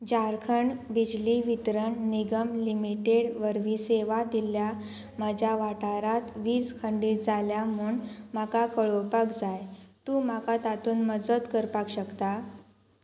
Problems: constant background noise